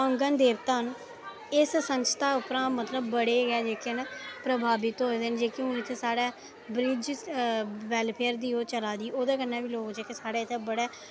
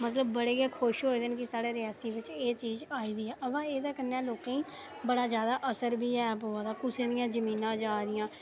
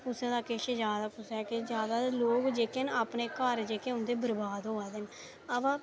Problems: constant background noise